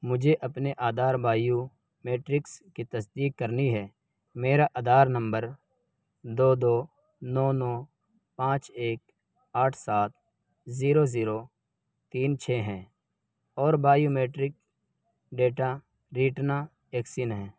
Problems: constant background noise